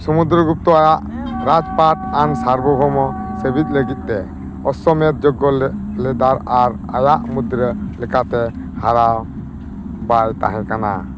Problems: constant background noise